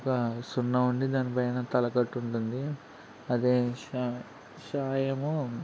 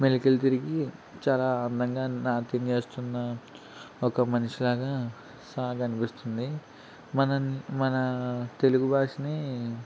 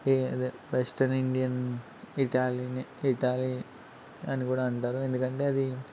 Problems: none marked